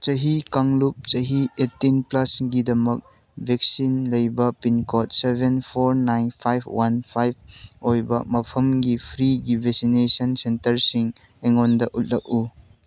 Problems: none marked